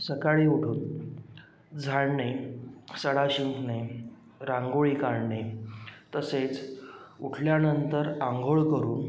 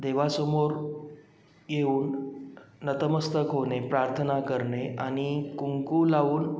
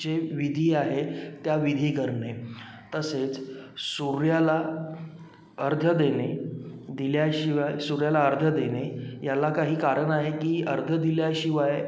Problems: background sounds at intervals